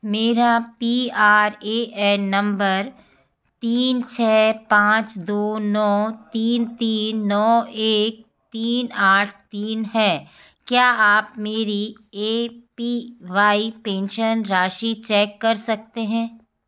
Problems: background sounds at intervals